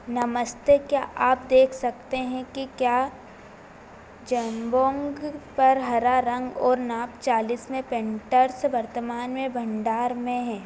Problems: constant background noise